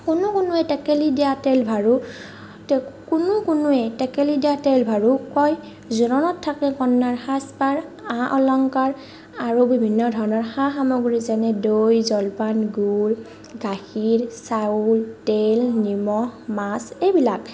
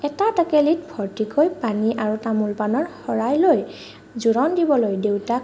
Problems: none marked